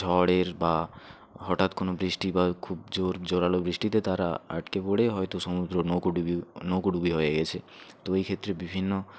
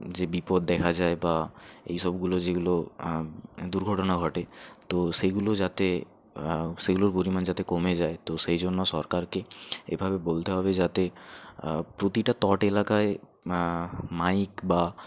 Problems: background conversations at intervals